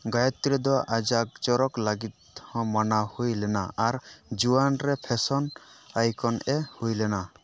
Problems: none marked